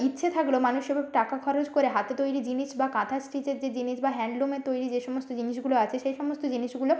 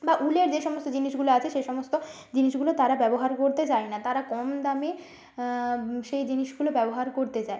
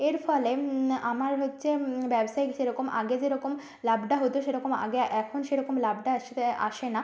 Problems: none marked